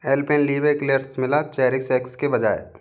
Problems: none marked